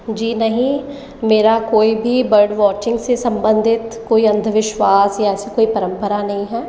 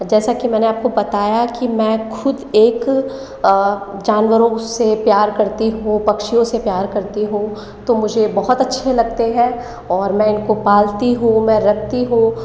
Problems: echo